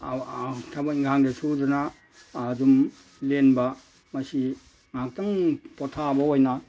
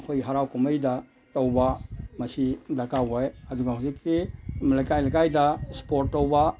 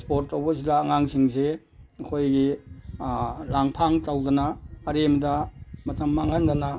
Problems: background sounds at intervals